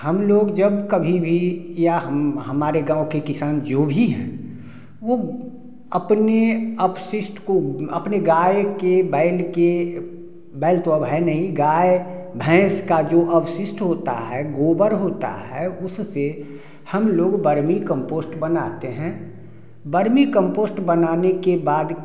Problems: background sounds at intervals